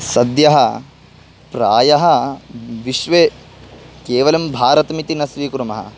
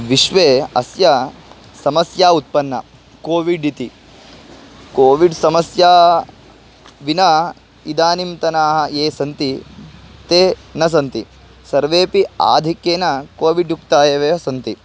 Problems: constant background noise